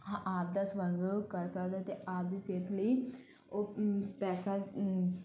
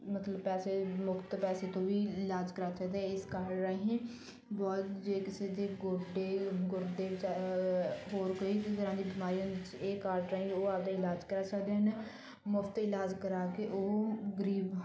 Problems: none marked